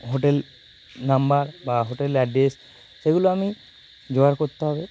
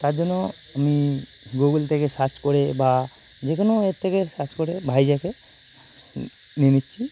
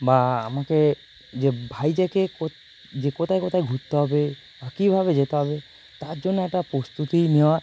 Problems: constant background noise